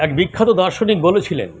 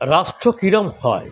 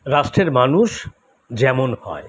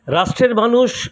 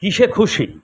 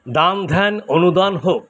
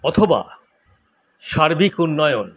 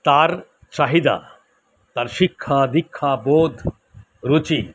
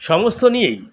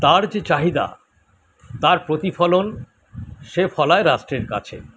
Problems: none marked